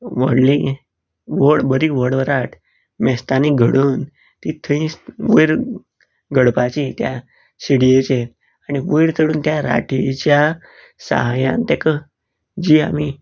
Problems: none marked